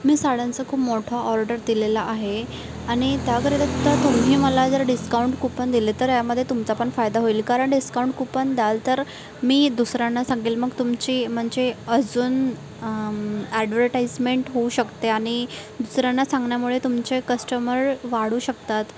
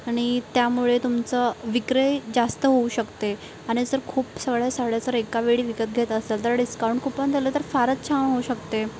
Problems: constant background noise, background conversations at intervals